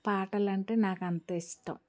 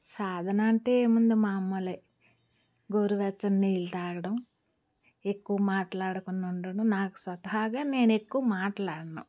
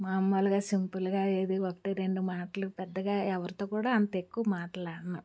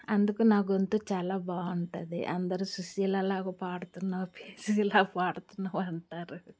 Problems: background sounds at intervals